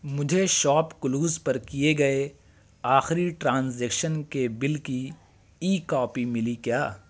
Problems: constant background noise